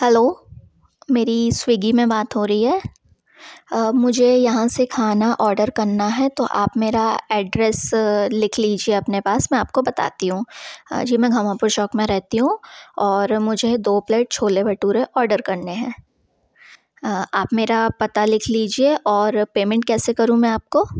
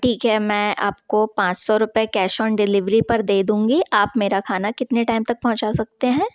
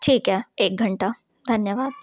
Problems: background sounds at intervals